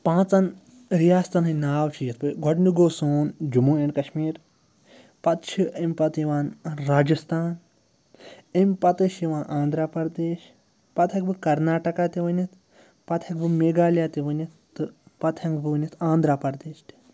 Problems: background sounds at intervals